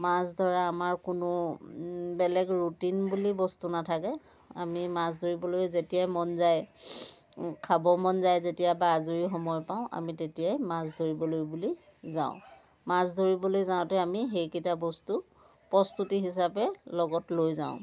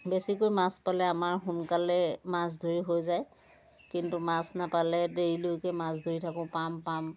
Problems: background sounds at intervals, continuous background conversations